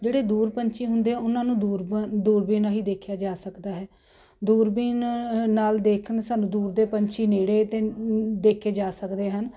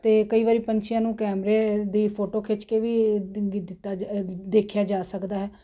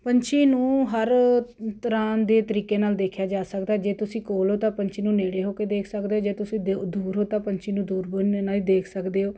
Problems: none marked